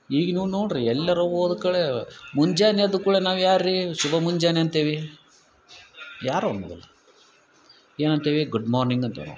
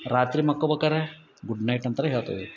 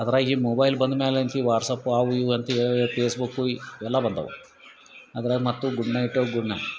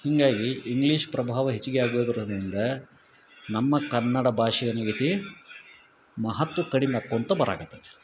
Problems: none marked